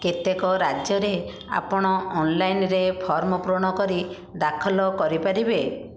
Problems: background sounds at intervals